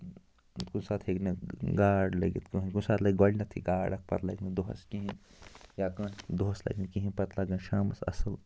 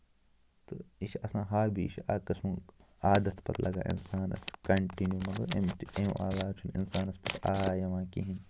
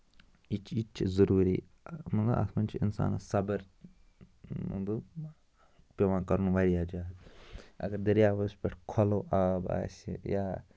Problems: constant background noise